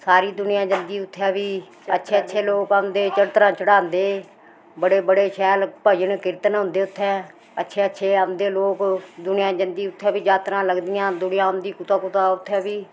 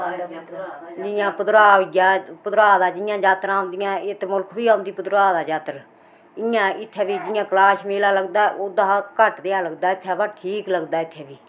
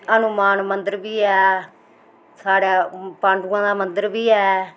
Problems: constant background noise, background conversations at intervals